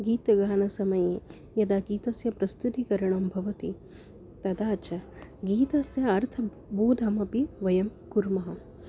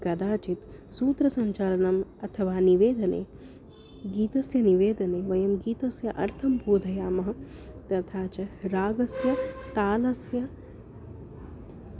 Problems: none marked